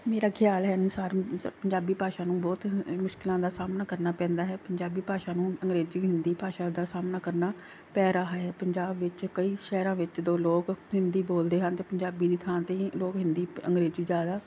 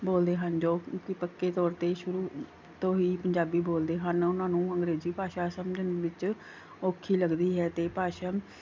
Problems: background sounds at intervals